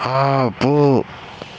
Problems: constant background noise